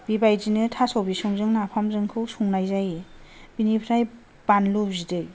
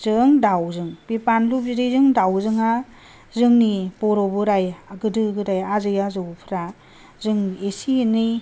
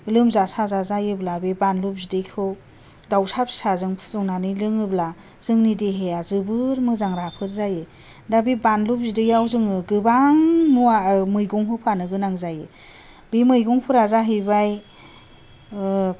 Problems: none marked